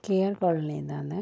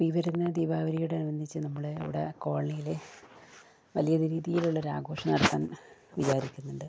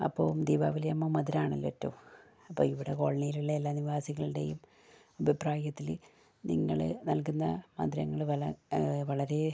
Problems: low volume